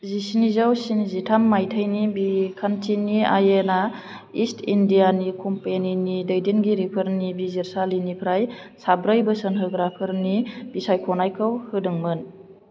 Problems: none marked